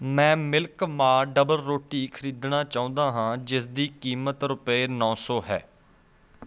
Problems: background sounds at intervals